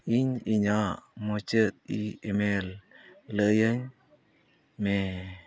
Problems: none marked